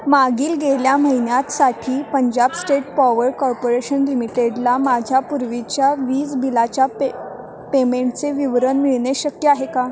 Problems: constant background noise, continuous background conversations